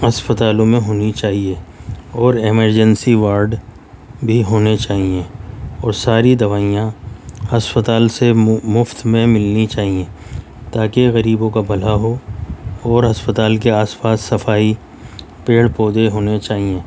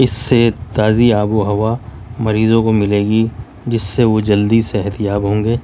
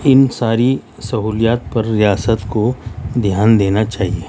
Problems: none marked